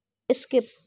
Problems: none marked